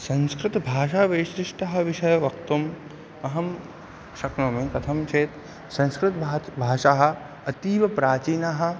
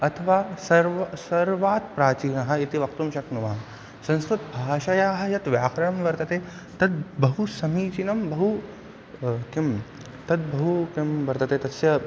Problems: none marked